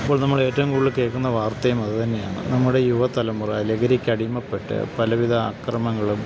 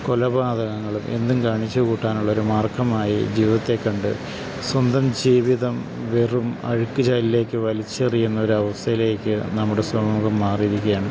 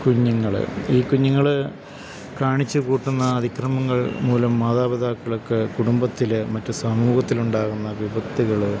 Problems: constant background noise